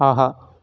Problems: none marked